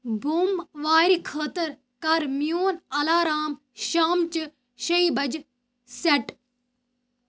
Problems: none marked